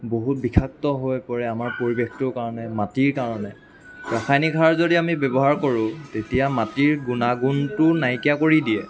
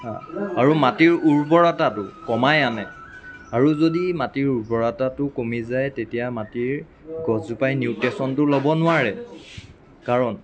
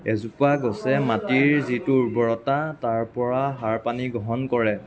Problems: constant background noise, continuous background conversations